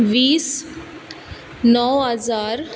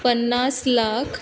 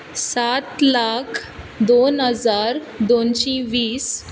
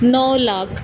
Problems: background sounds at intervals